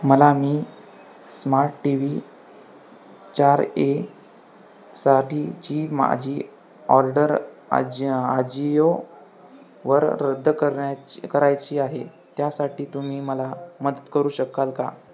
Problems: constant background noise, background conversations at intervals